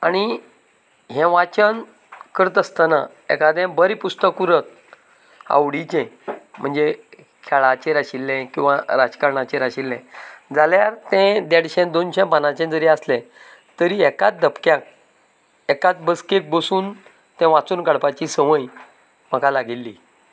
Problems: none marked